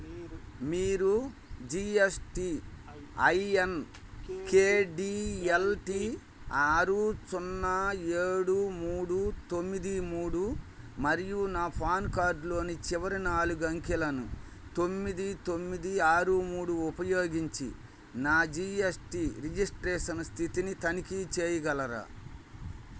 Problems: background conversations at intervals